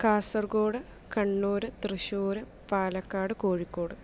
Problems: low volume